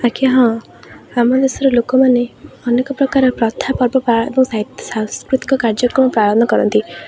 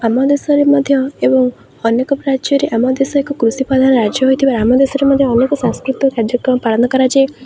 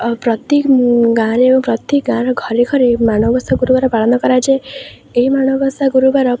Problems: none marked